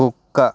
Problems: background sounds at intervals